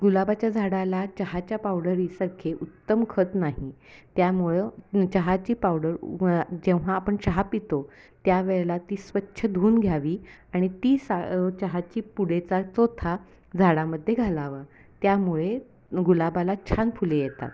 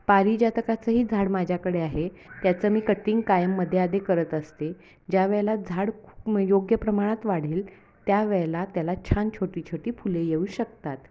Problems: background sounds at intervals, background conversations at intervals